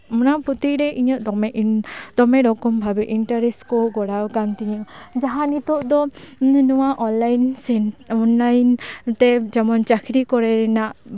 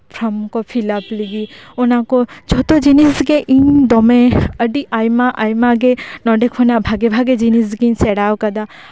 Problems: none marked